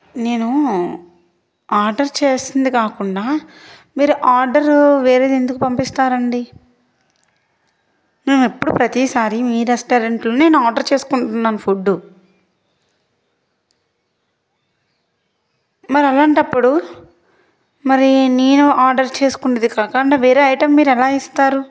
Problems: background sounds at intervals